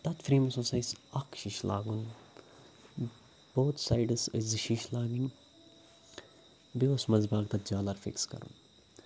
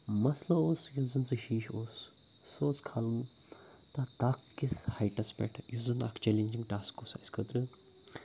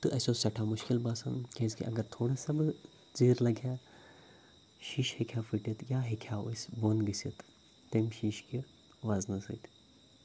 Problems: none marked